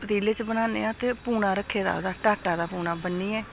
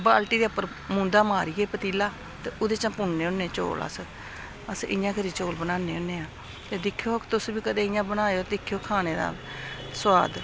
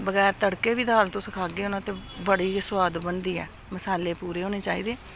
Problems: constant background noise